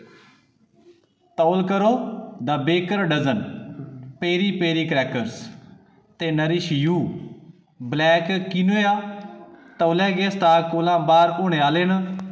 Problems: none marked